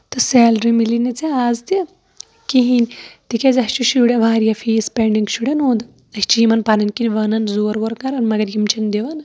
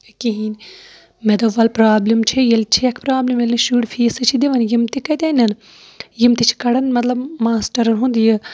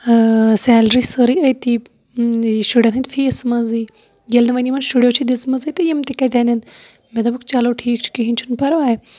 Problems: background sounds at intervals